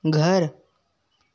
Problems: none marked